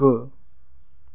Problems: low volume